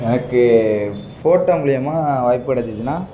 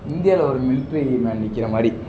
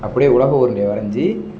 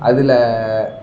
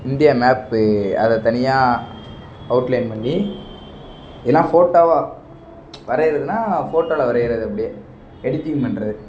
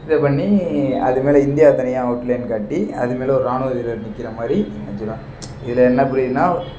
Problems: background sounds at intervals